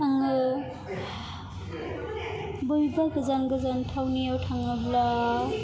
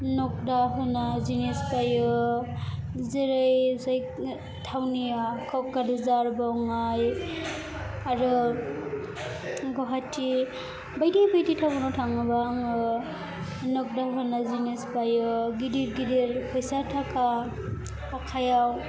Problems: continuous background conversations